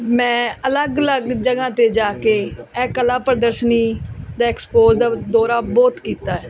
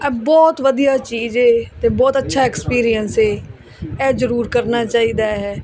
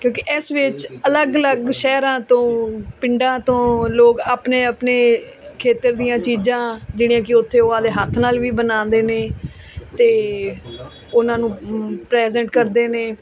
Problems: none marked